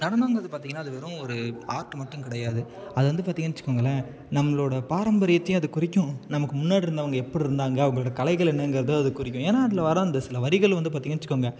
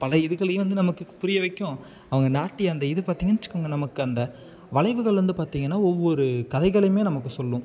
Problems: background sounds at intervals, background conversations at intervals